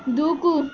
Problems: constant background noise